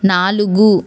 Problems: none marked